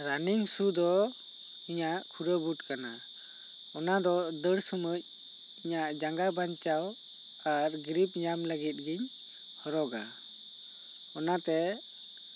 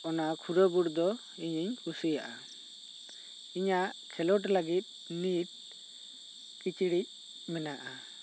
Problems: none marked